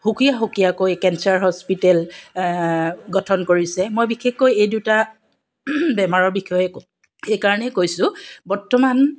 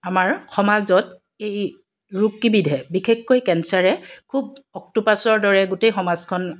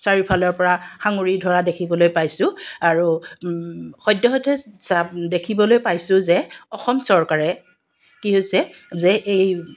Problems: background sounds at intervals